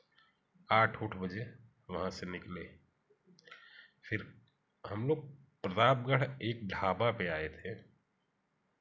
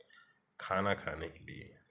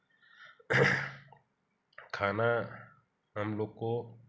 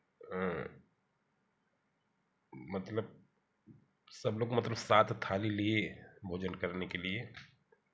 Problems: background sounds at intervals, background conversations at intervals